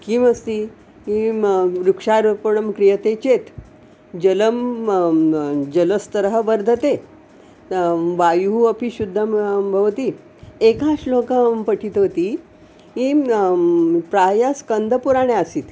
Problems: none marked